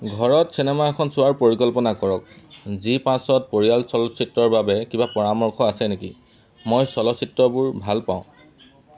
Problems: none marked